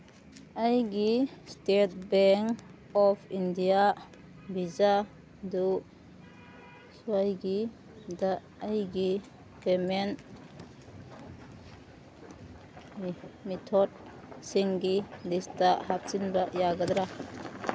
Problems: background sounds at intervals